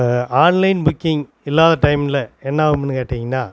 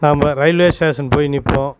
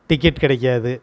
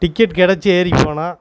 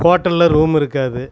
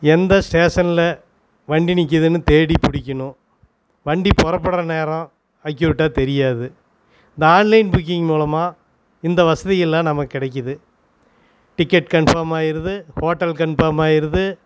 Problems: constant background noise